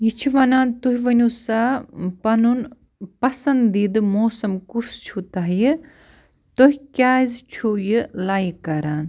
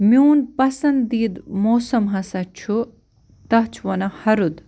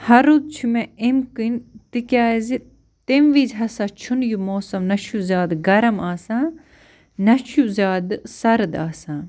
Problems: none marked